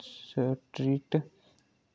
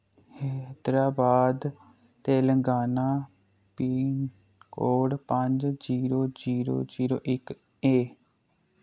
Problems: low volume